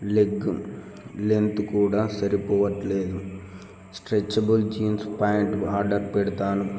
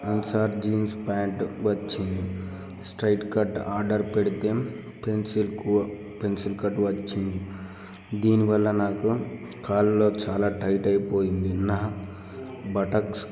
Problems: background conversations at intervals